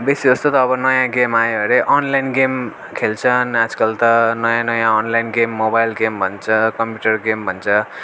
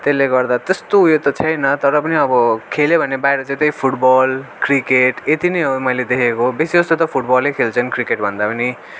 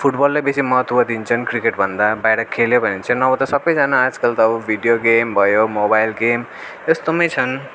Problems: none marked